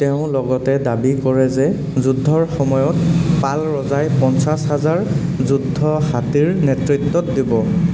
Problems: constant background noise